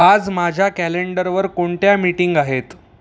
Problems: background sounds at intervals